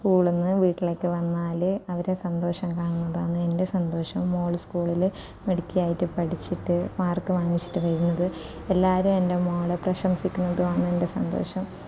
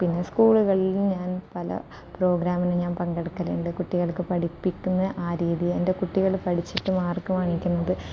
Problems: none marked